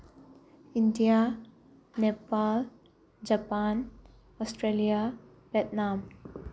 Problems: background sounds at intervals